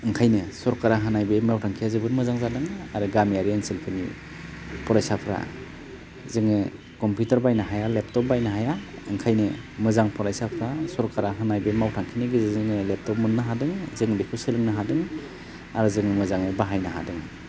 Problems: constant background noise